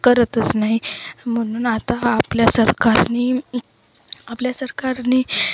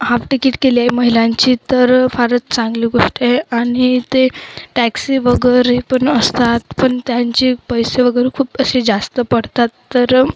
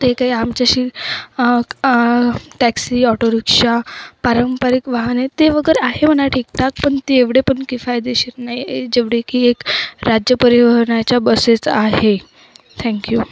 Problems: constant background noise